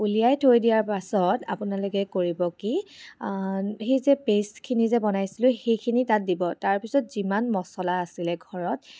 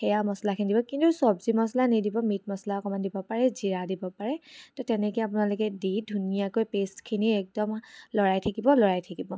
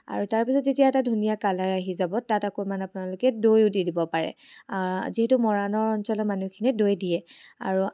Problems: none marked